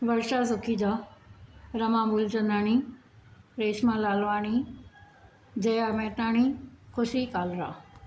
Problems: none marked